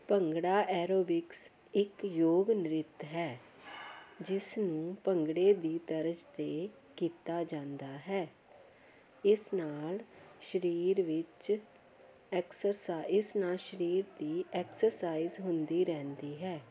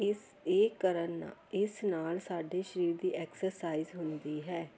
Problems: constant background noise, continuous background conversations